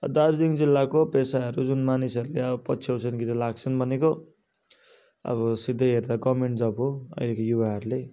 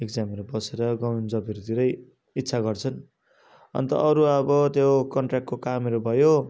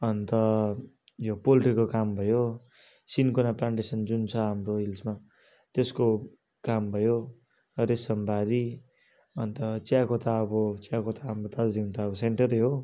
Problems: none marked